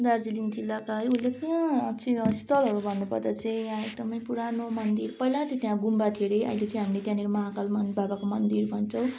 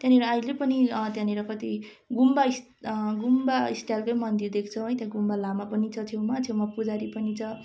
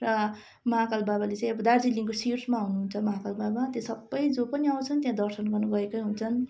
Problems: constant background noise